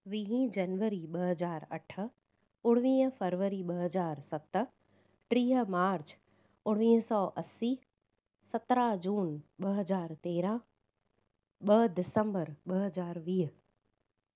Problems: none marked